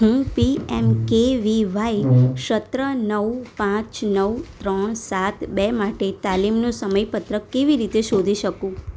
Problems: none marked